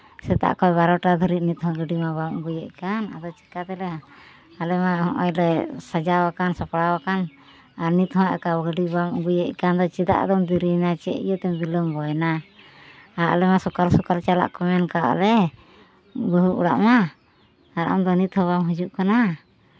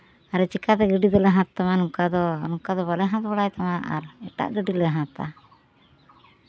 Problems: constant background noise